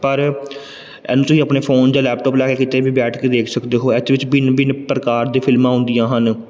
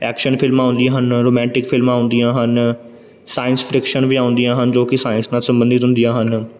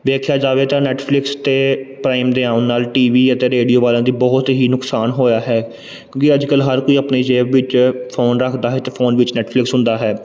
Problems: background sounds at intervals